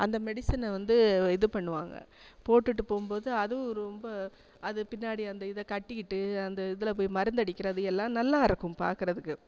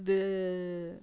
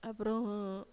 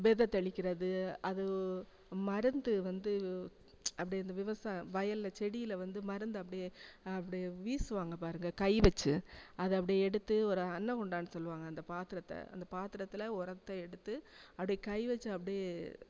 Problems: constant background noise